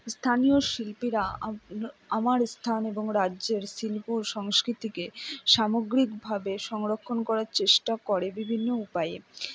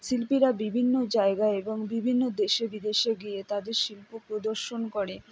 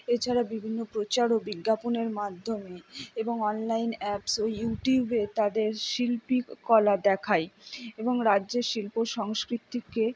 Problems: none marked